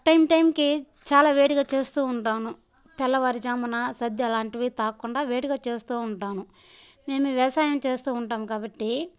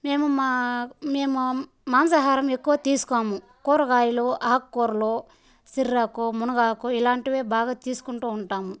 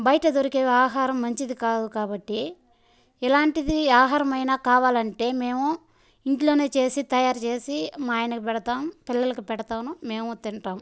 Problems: background sounds at intervals, background conversations at intervals